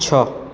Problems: constant background noise